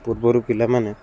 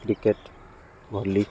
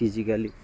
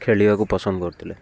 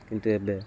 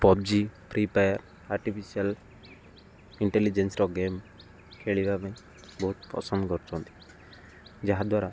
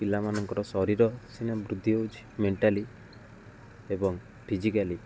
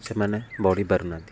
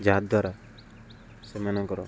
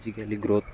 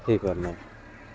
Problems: constant background noise